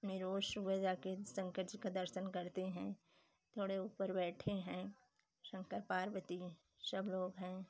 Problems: none marked